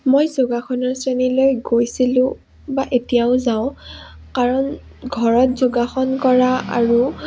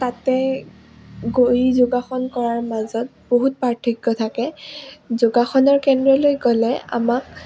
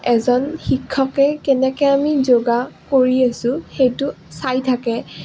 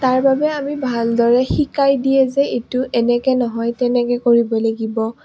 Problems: none marked